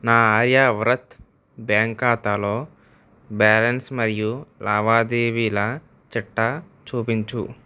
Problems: none marked